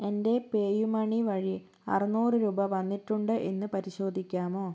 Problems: low volume